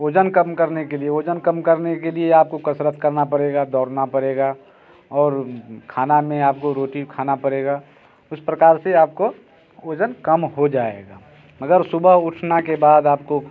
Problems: background sounds at intervals